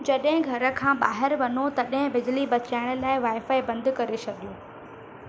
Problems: constant background noise, echo